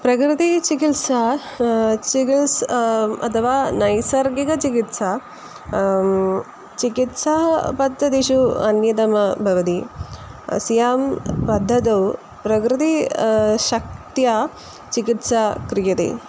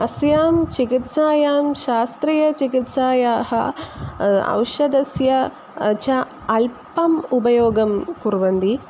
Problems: constant background noise